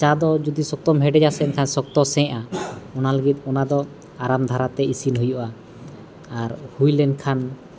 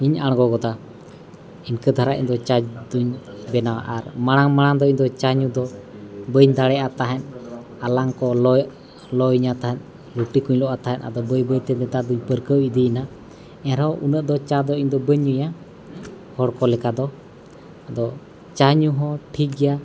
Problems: background sounds at intervals, continuous background conversations